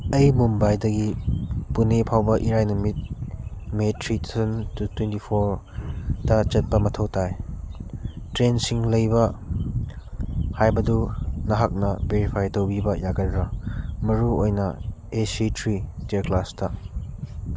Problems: constant background noise